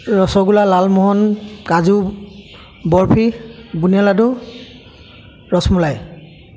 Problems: constant background noise, continuous background conversations